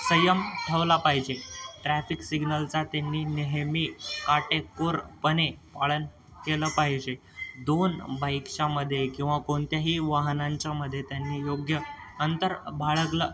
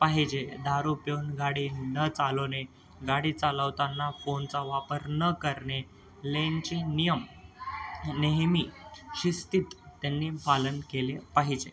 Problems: constant background noise, continuous background conversations